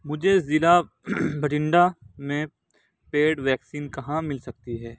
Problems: none marked